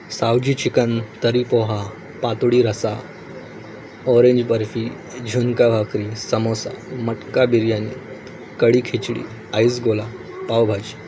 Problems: none marked